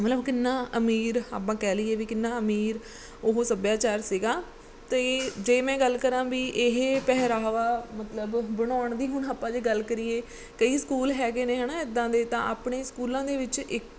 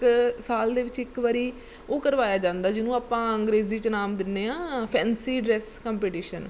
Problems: background sounds at intervals